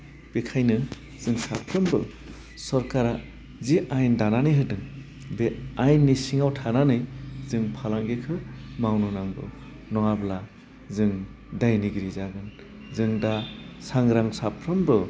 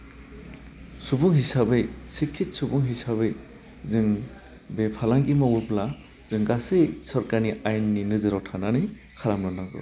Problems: constant background noise